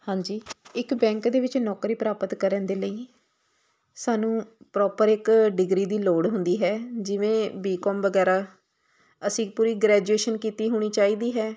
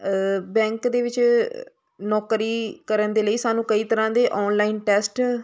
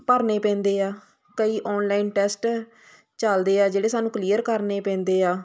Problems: constant background noise